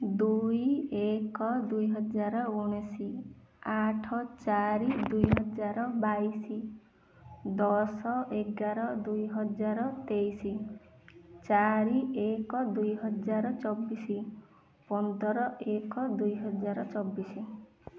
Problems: low volume